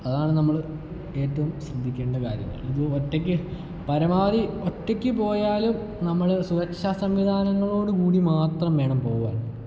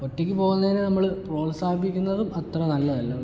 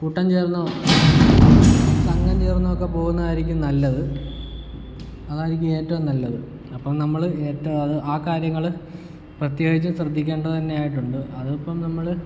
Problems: background sounds at intervals